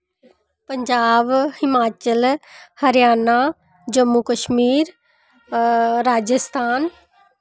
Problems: constant background noise